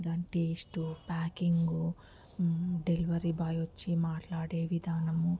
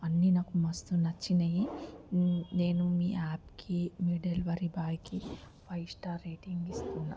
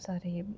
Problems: background sounds at intervals, low volume